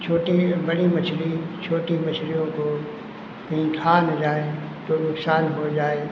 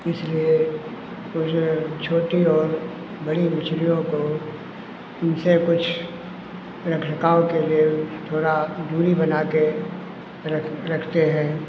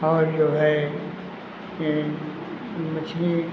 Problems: constant background noise